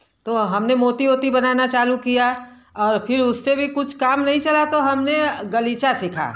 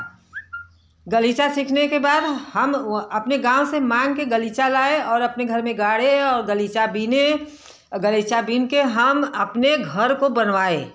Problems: none marked